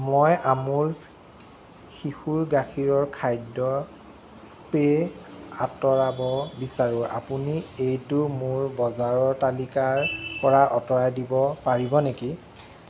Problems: constant background noise